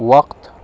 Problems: none marked